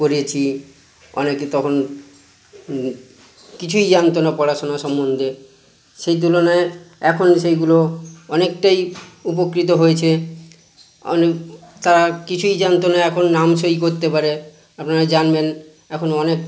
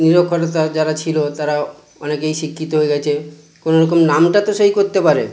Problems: constant background noise